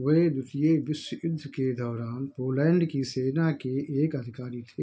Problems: background sounds at intervals